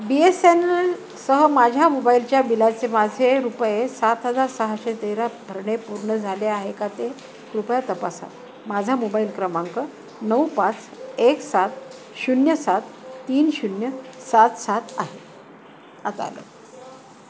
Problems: constant background noise